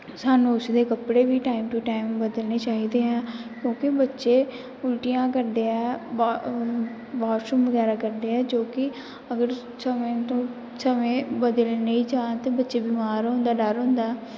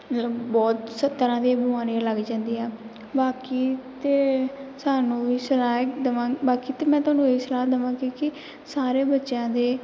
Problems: background sounds at intervals